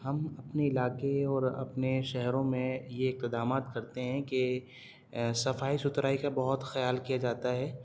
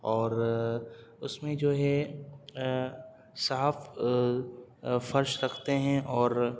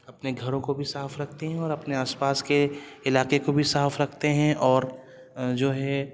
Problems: none marked